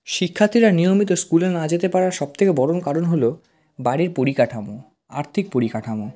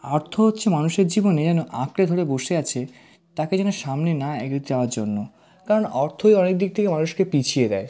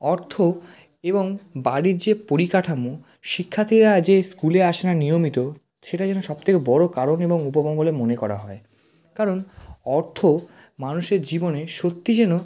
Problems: constant background noise